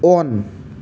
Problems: constant background noise